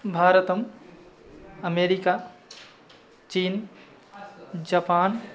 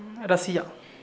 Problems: none marked